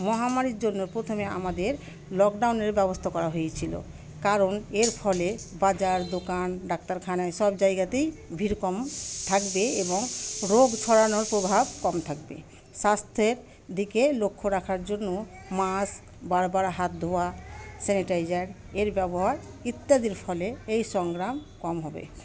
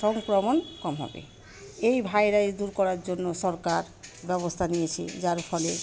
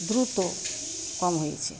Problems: constant background noise, continuous background conversations